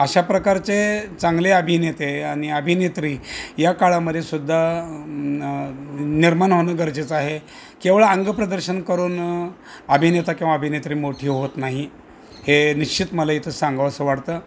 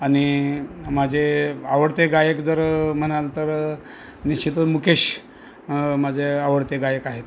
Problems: none marked